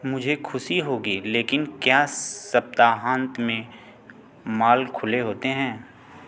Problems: none marked